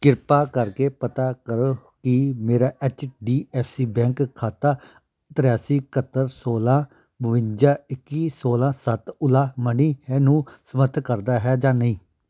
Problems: background conversations at intervals